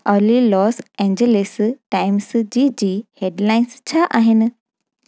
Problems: background sounds at intervals